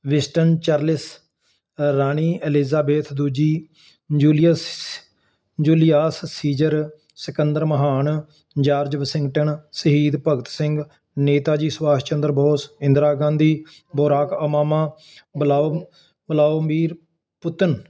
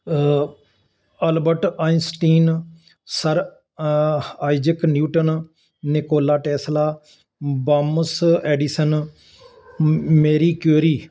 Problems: constant background noise